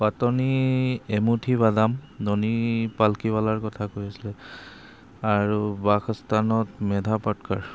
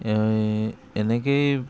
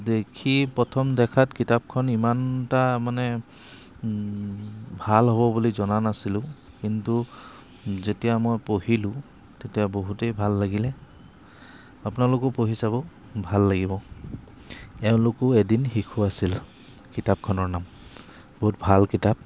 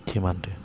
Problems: constant background noise